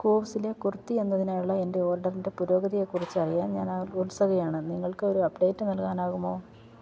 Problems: none marked